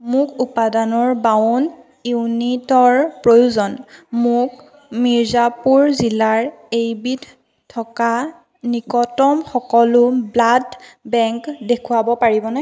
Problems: constant background noise